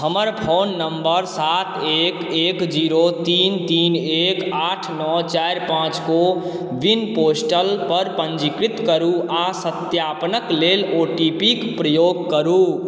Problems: none marked